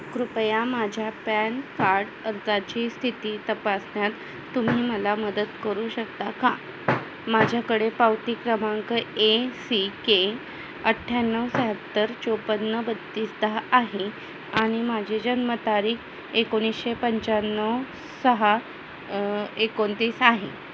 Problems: none marked